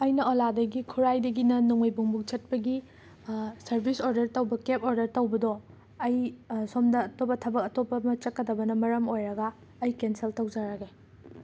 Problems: constant background noise